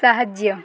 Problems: constant background noise